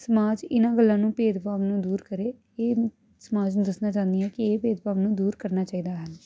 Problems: none marked